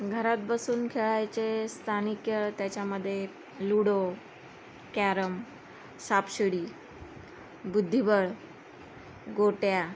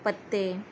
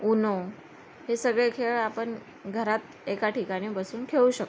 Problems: none marked